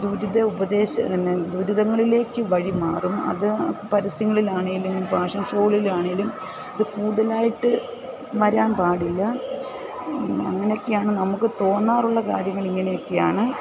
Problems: constant background noise